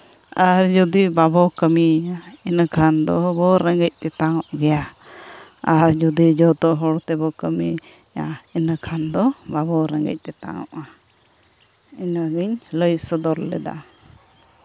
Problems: background sounds at intervals